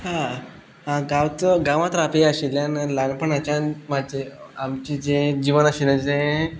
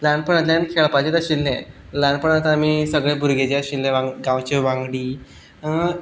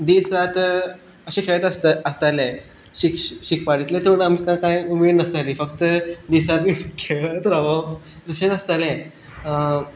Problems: none marked